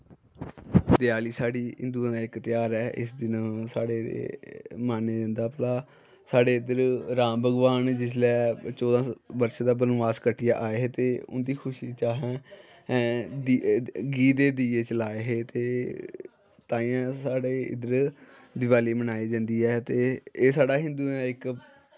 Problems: none marked